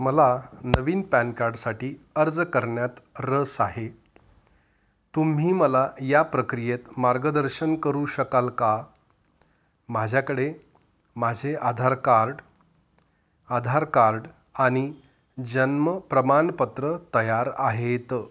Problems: none marked